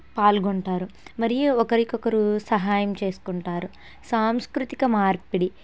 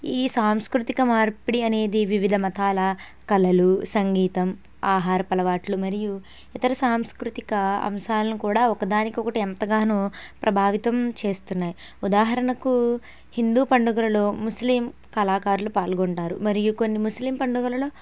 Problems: none marked